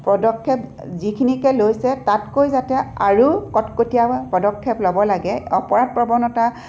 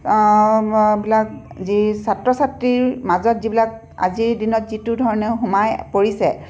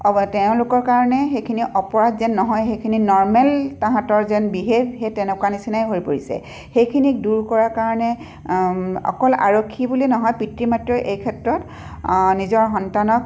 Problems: none marked